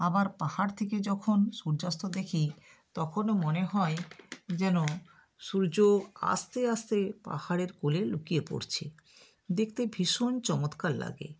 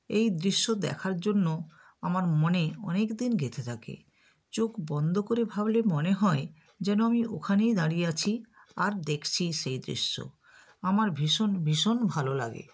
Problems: background sounds at intervals